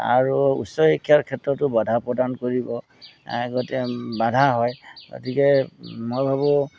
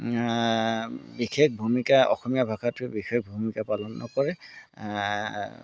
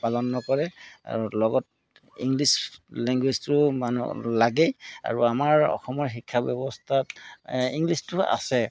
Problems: background sounds at intervals